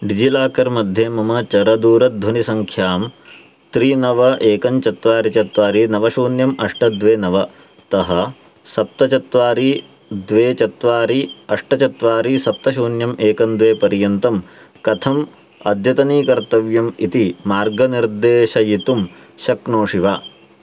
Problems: background sounds at intervals